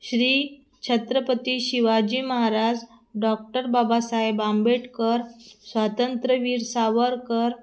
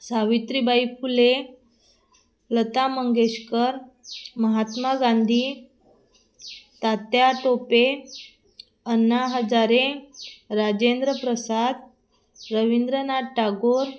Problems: constant background noise